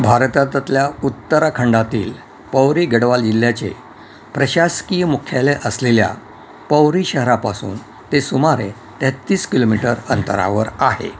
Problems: none marked